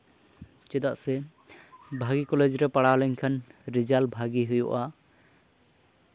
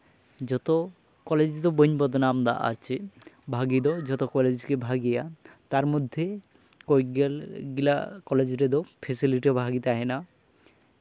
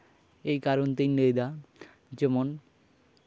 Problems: none marked